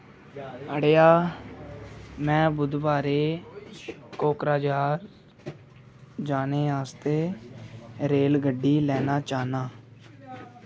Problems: none marked